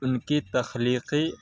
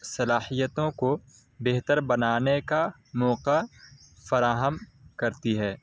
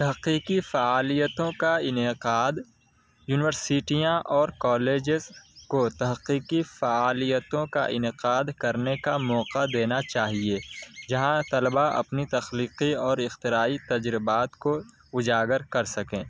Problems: background sounds at intervals